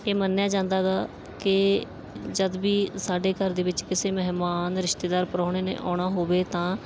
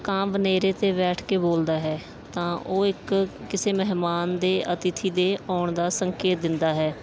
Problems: none marked